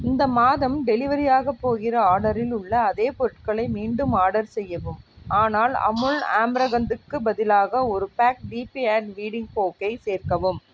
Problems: background sounds at intervals